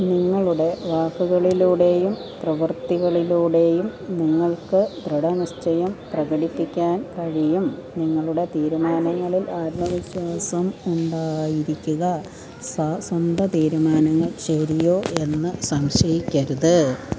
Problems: constant background noise, low volume